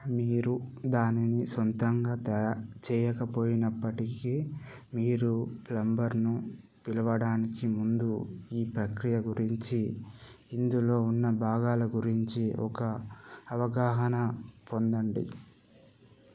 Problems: none marked